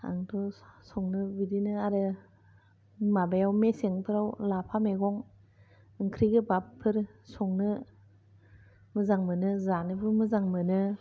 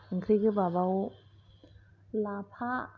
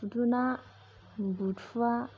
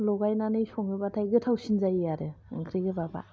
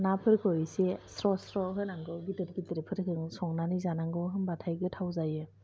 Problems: low volume